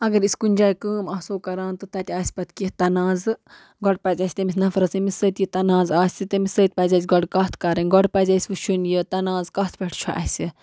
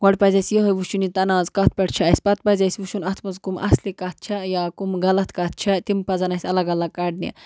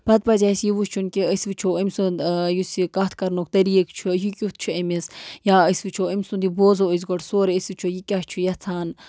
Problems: background sounds at intervals